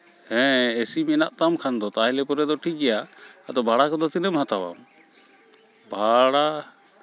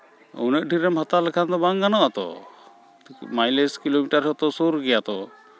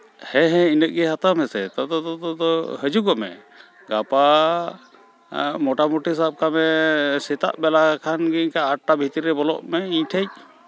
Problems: constant background noise, continuous background conversations